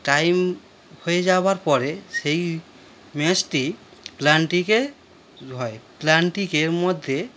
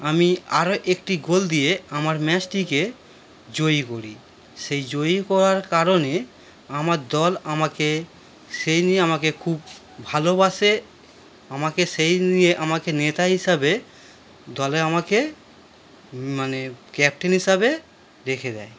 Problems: constant background noise